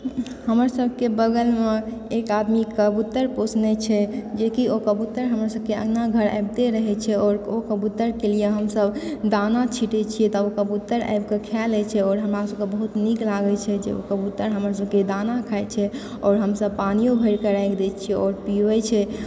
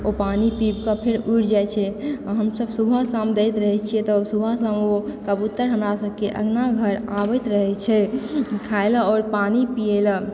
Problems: background sounds at intervals